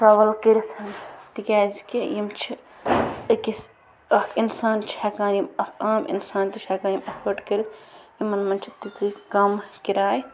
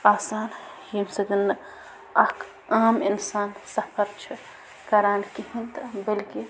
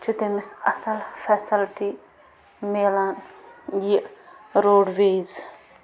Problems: constant background noise